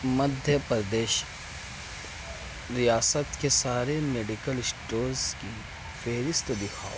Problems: none marked